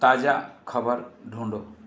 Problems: none marked